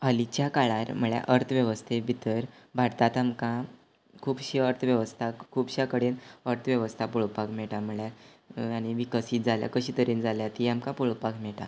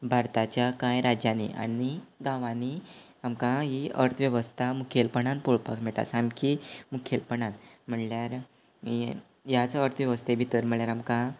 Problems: none marked